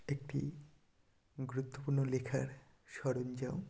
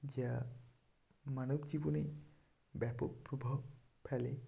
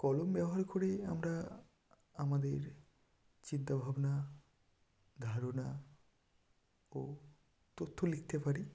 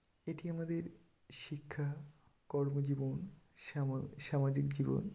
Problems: background sounds at intervals